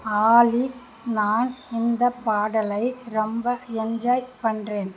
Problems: constant background noise